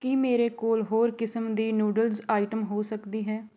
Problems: none marked